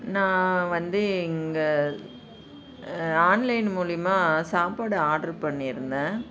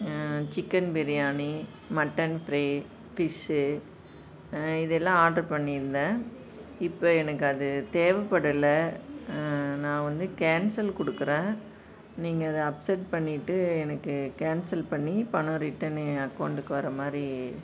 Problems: none marked